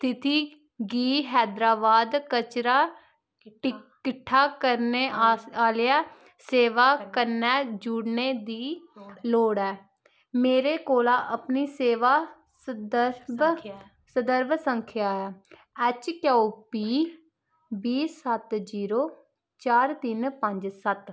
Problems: constant background noise